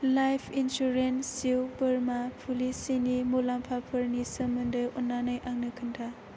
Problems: low volume